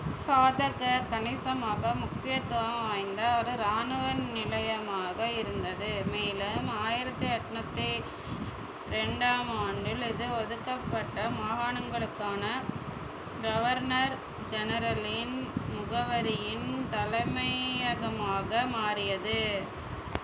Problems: constant background noise